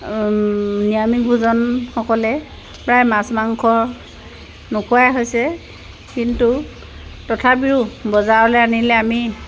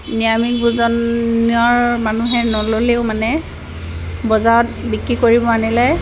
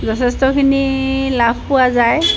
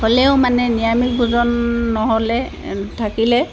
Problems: none marked